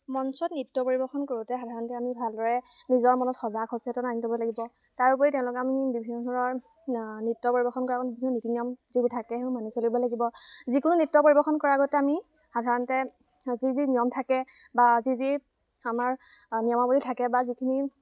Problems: constant background noise